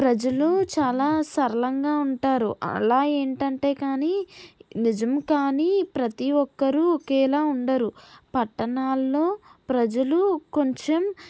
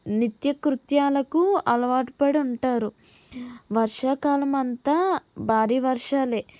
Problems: none marked